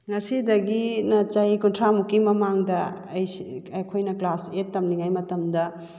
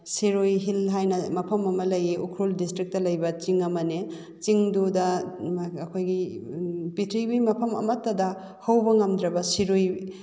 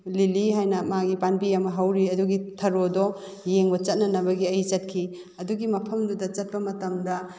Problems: none marked